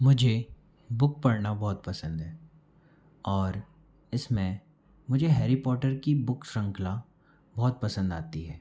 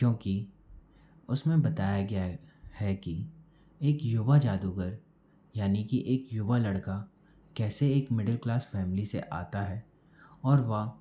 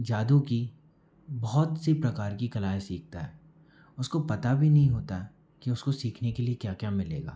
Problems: background sounds at intervals